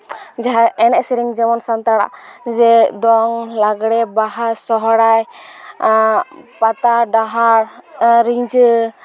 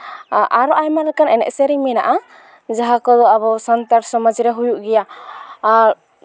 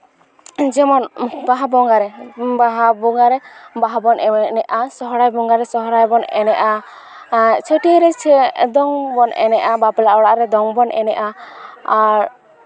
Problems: background sounds at intervals